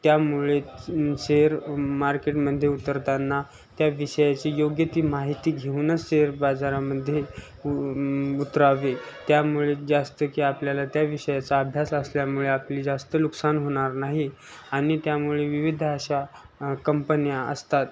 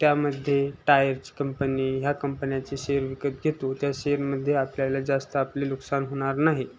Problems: constant background noise